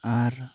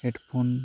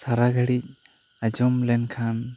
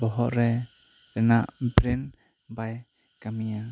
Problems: constant background noise